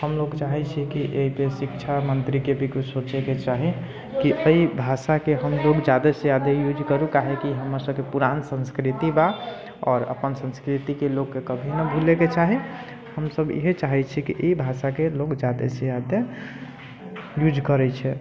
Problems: constant background noise